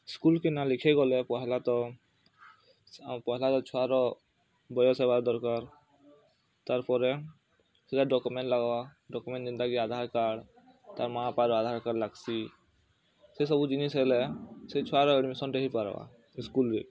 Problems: constant background noise, continuous background conversations